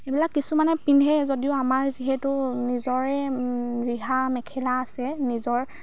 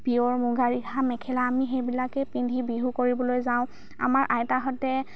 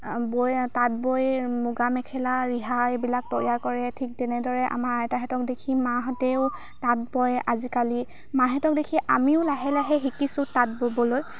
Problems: constant background noise